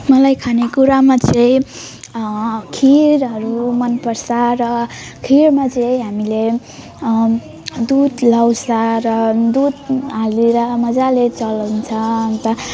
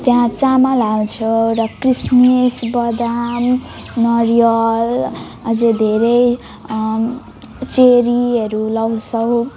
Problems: continuous background conversations